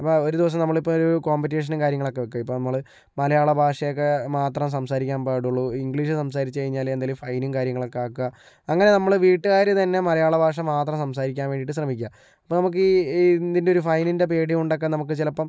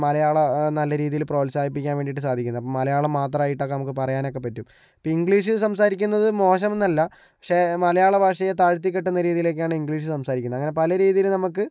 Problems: low volume